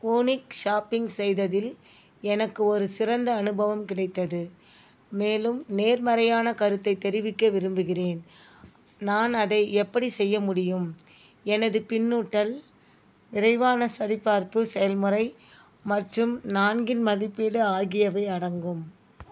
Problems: none marked